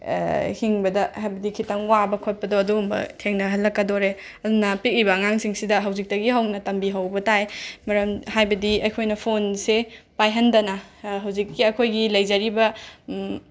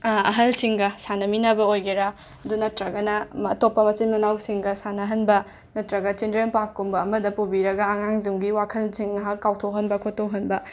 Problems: background sounds at intervals